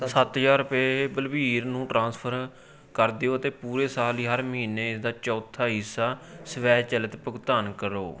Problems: background conversations at intervals